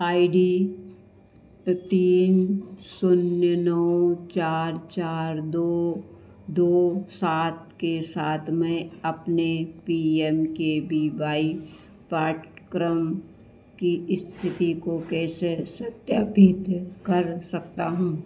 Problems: constant background noise